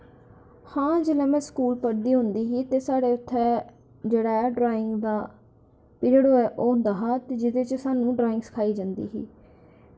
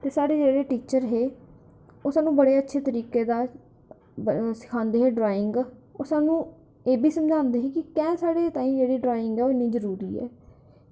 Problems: none marked